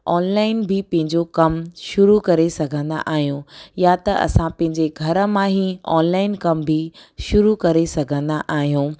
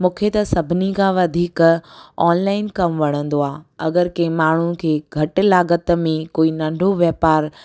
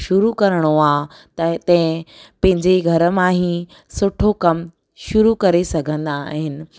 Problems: none marked